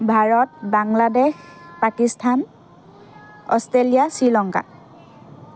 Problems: continuous background conversations